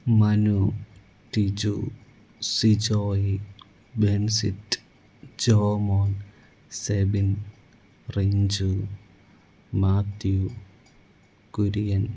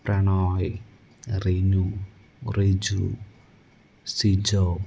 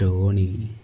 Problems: low volume